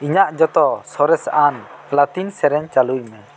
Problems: constant background noise